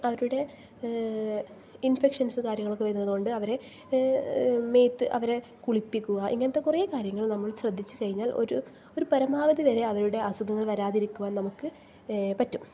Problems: low volume